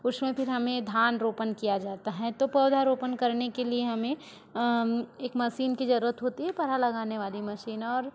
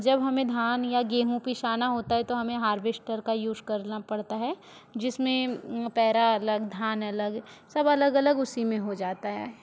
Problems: continuous background conversations